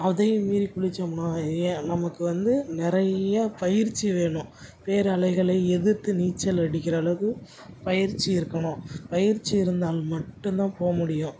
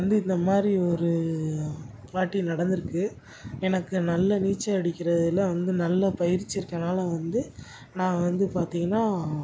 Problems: none marked